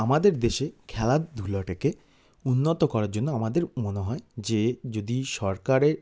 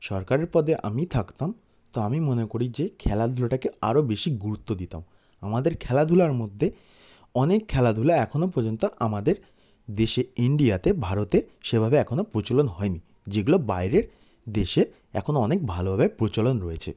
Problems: none marked